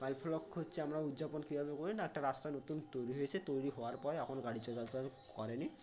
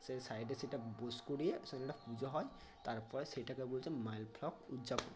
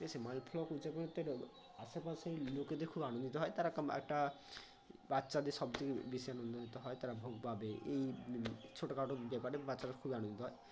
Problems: none marked